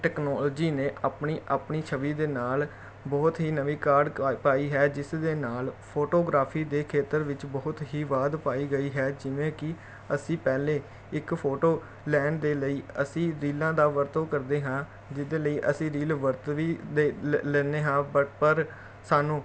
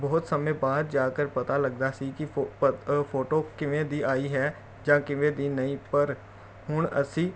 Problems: none marked